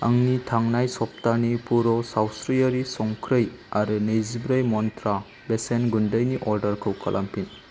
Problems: constant background noise